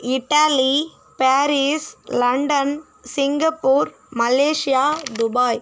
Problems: constant background noise